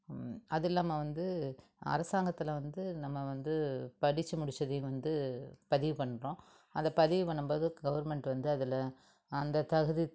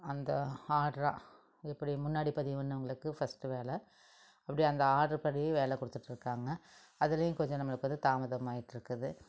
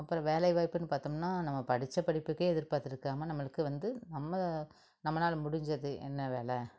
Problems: none marked